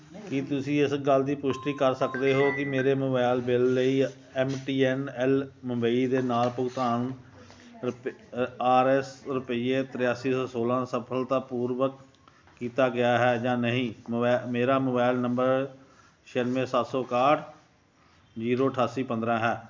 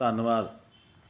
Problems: none marked